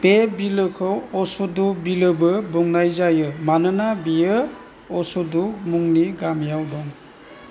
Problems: constant background noise